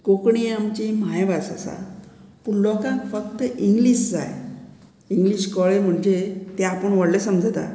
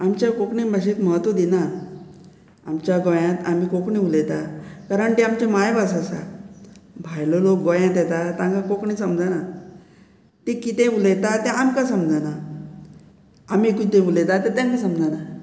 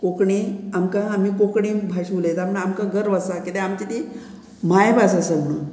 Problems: background conversations at intervals